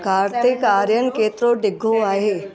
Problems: constant background noise